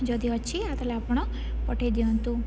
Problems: background sounds at intervals, background conversations at intervals